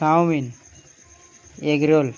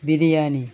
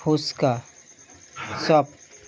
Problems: constant background noise